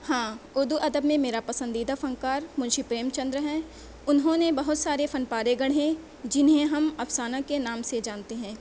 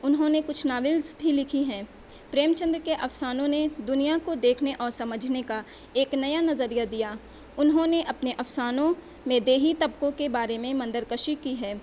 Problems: none marked